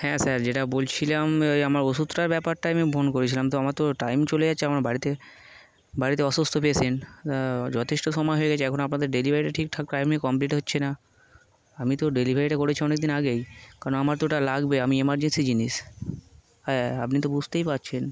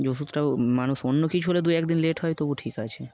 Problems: constant background noise